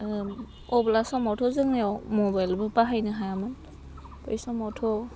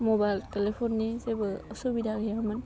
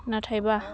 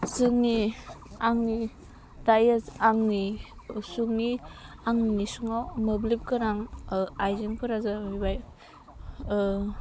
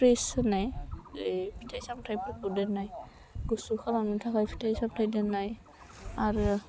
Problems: low volume